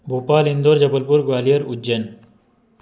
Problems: none marked